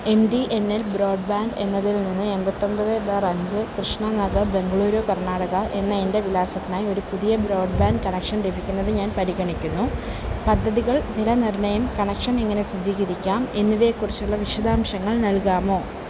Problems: constant background noise, low volume